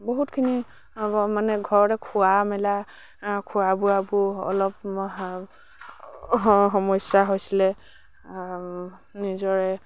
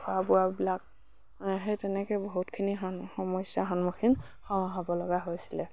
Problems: background sounds at intervals